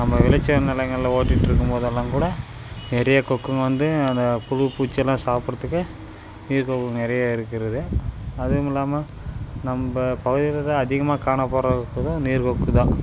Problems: constant background noise